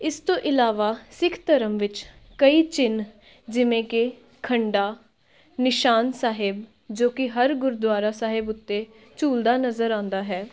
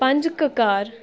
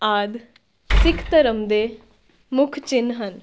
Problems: background conversations at intervals